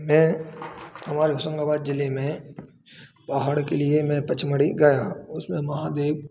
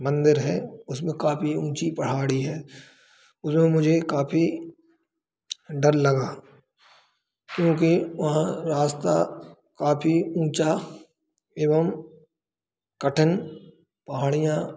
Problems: constant background noise, echo